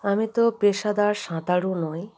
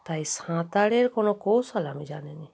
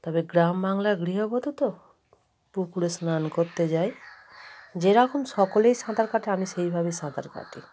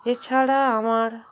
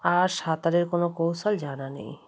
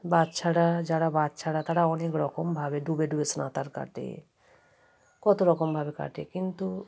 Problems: background sounds at intervals, background conversations at intervals